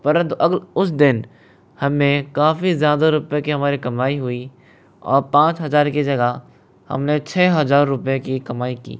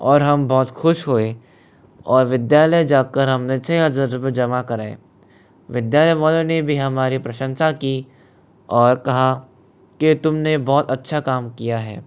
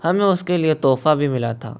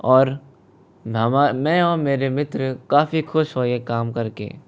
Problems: none marked